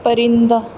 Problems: none marked